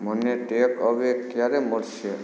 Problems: background sounds at intervals